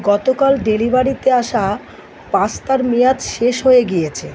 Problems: none marked